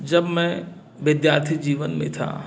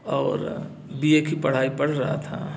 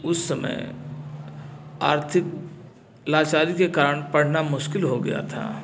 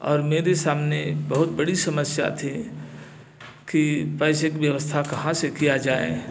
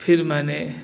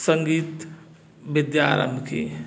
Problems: background sounds at intervals, background conversations at intervals